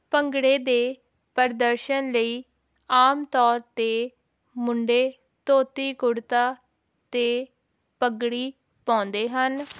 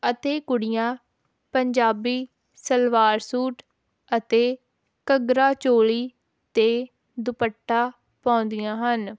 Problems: none marked